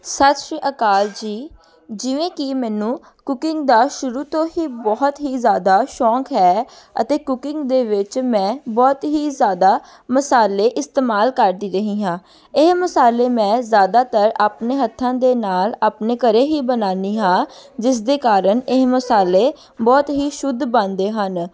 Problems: continuous background conversations